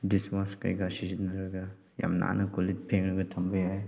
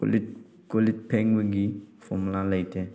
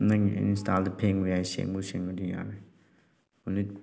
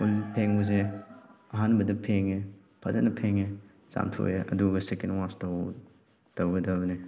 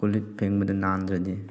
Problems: background sounds at intervals